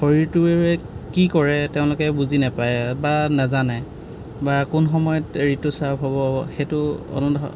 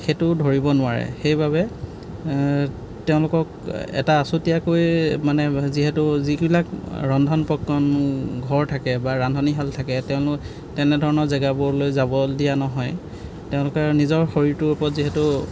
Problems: background sounds at intervals